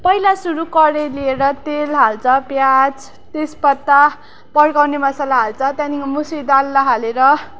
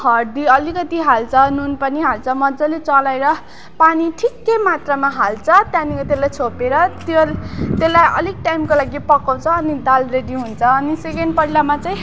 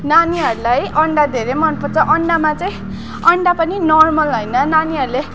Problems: constant background noise, continuous background conversations